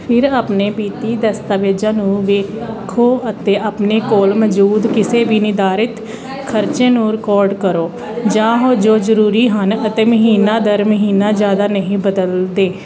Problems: constant background noise